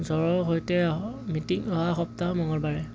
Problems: constant background noise